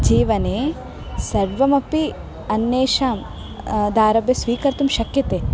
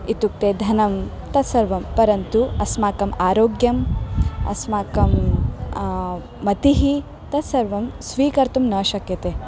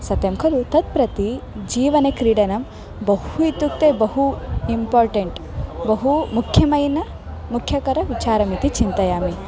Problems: constant background noise